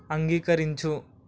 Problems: background sounds at intervals